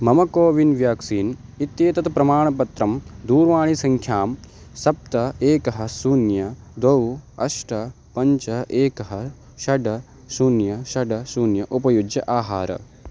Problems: constant background noise